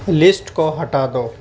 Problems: constant background noise